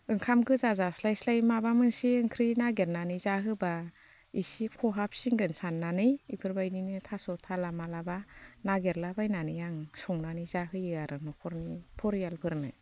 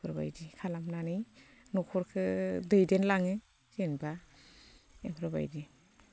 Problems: constant background noise